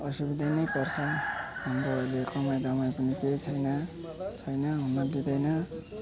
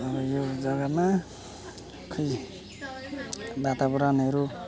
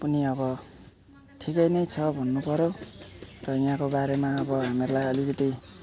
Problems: none marked